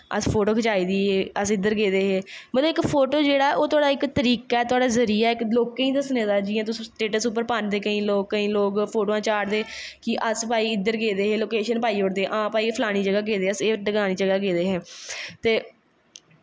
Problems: none marked